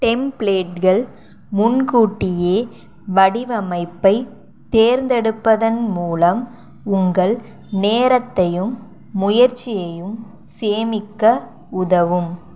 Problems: none marked